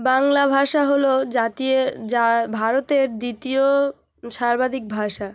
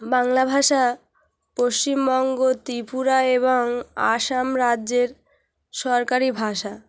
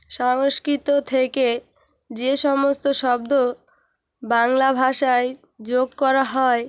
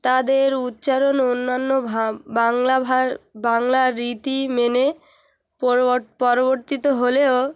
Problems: constant background noise